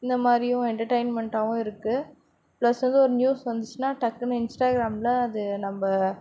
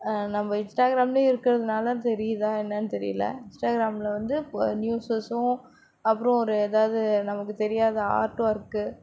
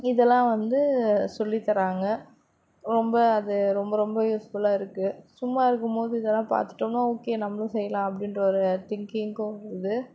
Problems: background sounds at intervals